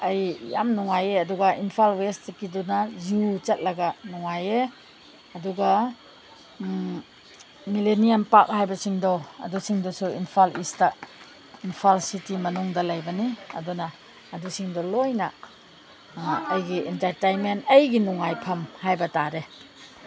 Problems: background sounds at intervals, background conversations at intervals